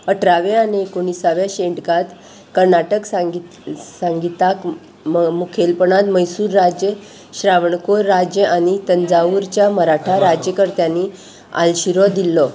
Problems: constant background noise